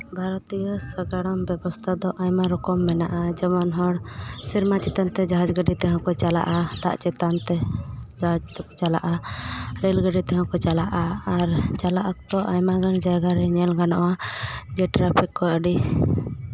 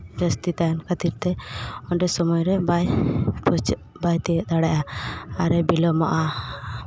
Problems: constant background noise, background conversations at intervals